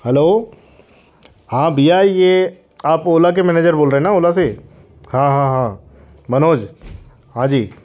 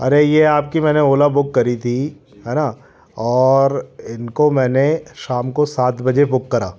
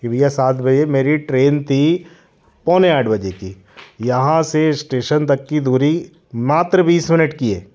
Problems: constant background noise